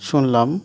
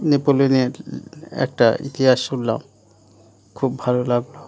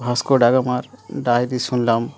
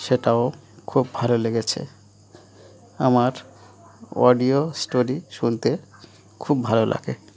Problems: continuous background conversations